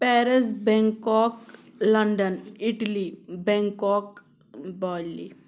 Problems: background sounds at intervals